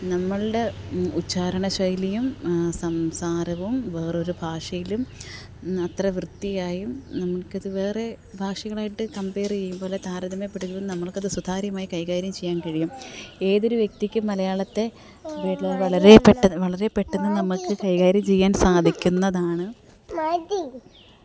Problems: background conversations at intervals